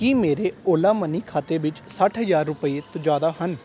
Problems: constant background noise